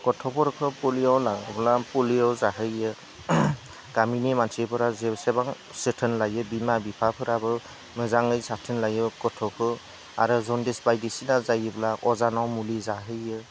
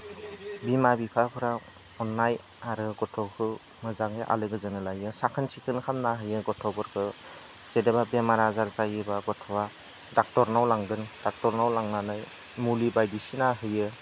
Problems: none marked